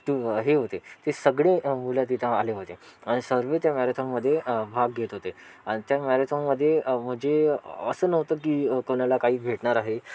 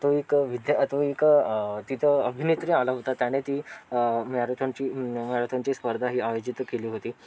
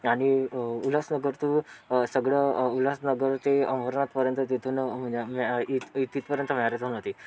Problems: constant background noise, continuous background conversations